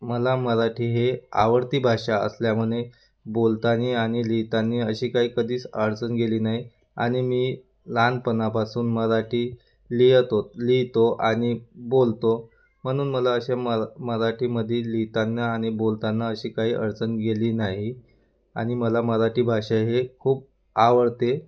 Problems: none marked